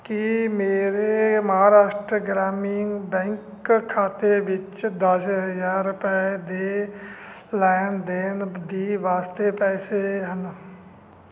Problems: constant background noise